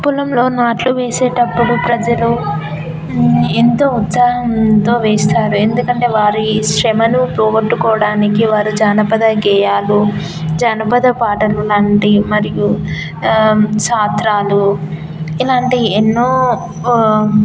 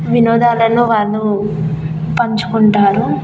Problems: none marked